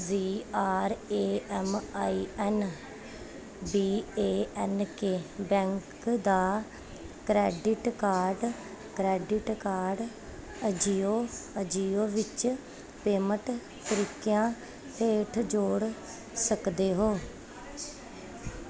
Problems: constant background noise